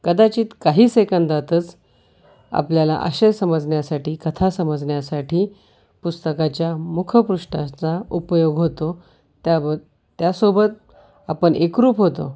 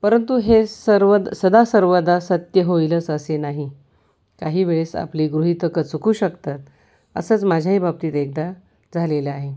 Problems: none marked